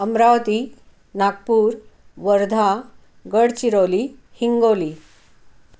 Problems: none marked